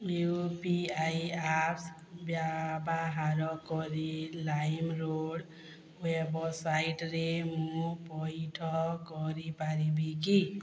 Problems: low volume